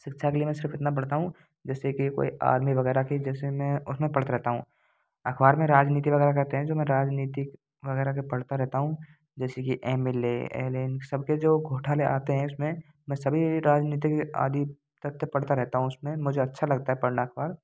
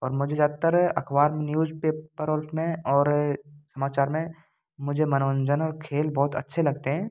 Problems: none marked